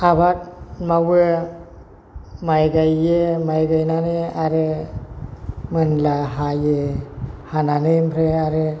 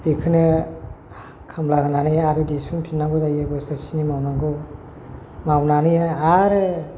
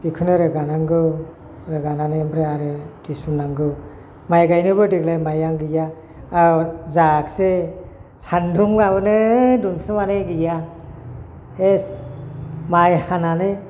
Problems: constant background noise